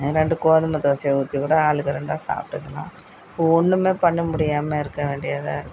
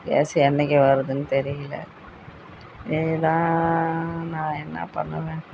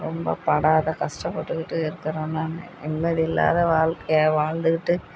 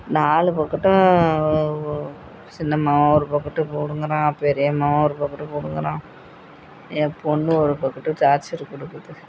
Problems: constant background noise, background conversations at intervals